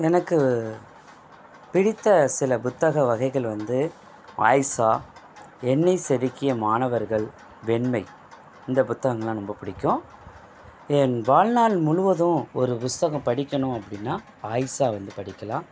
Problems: background sounds at intervals